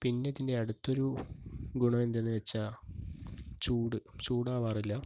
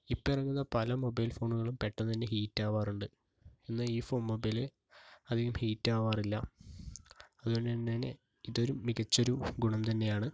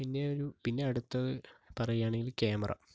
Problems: none marked